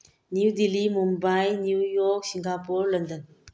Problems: low volume